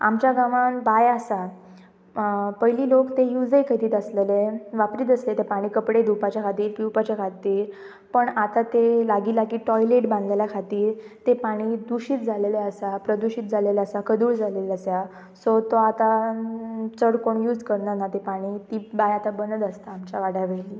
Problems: constant background noise, background conversations at intervals